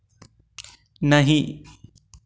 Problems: none marked